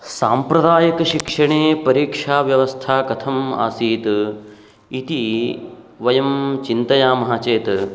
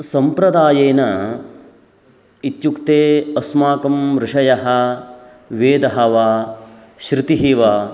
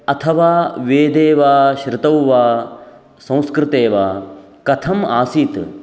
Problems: none marked